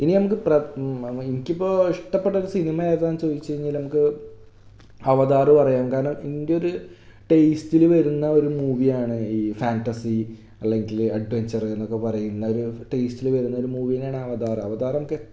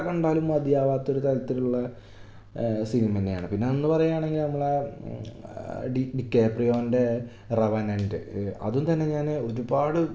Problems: background sounds at intervals